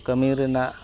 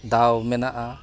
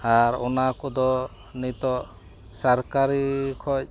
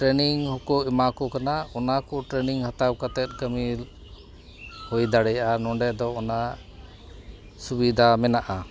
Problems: background sounds at intervals